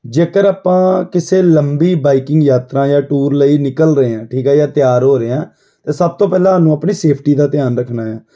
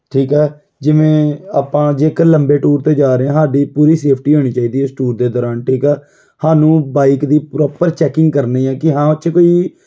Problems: background sounds at intervals